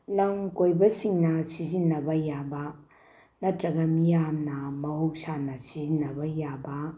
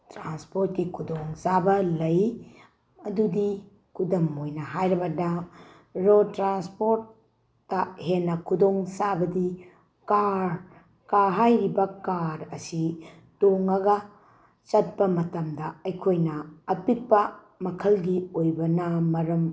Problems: background sounds at intervals